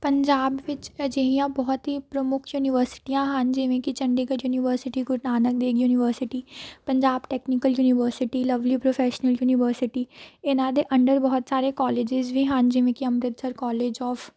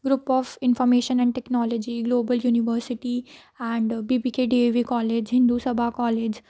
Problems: background conversations at intervals